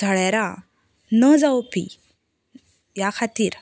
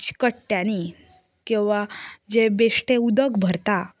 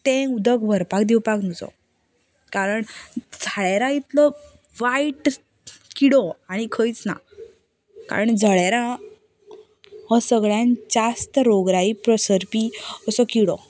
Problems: background sounds at intervals, background conversations at intervals